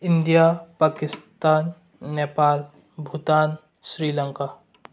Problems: low volume